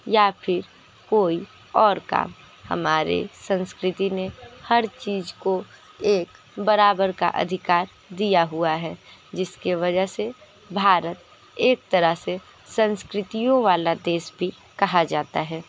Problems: constant background noise, continuous background conversations